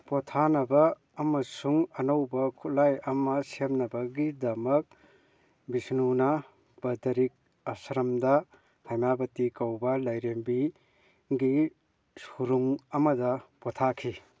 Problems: none marked